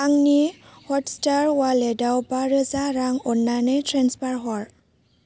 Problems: low volume